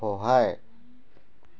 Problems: none marked